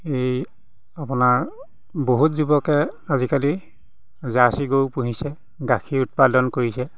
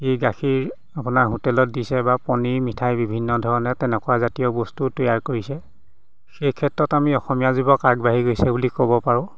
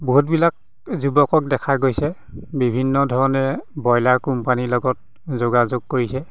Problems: constant background noise